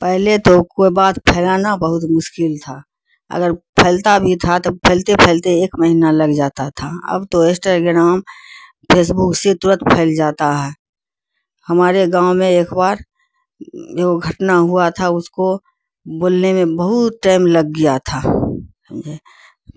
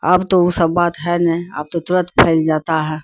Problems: none marked